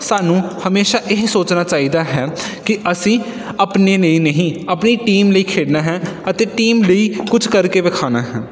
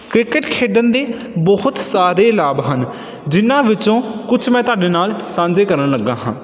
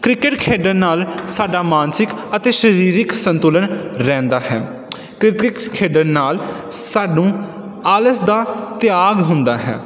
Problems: none marked